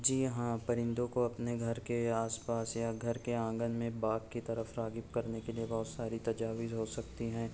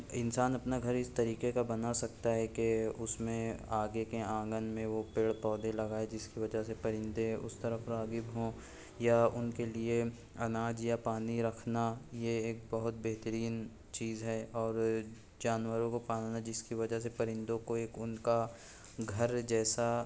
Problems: low volume